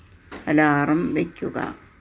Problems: background sounds at intervals